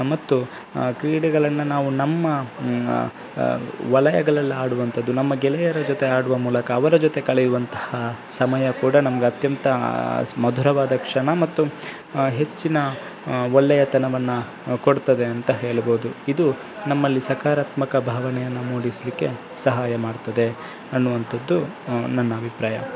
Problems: constant background noise